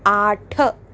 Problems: none marked